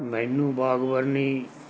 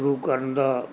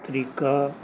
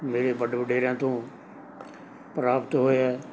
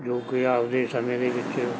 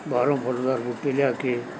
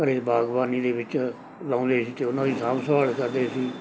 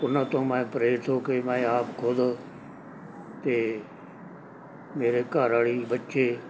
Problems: background sounds at intervals, background conversations at intervals